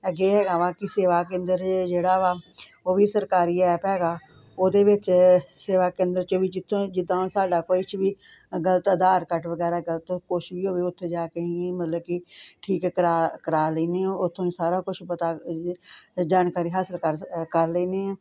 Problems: none marked